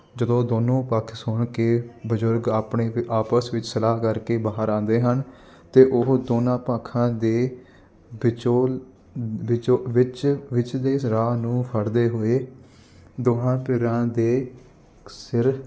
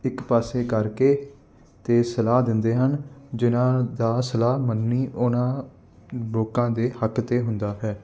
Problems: constant background noise